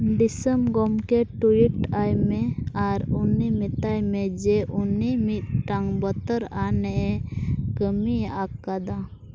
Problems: none marked